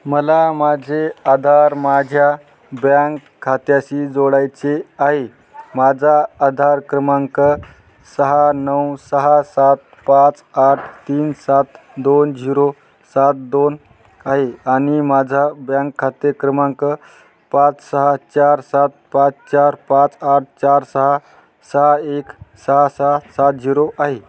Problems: constant background noise, background conversations at intervals